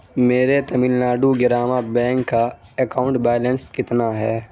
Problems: background sounds at intervals